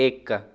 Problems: none marked